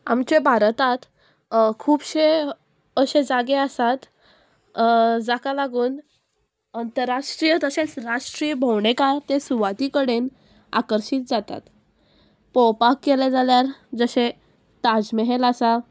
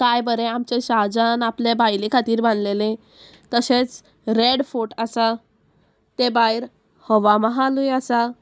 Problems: none marked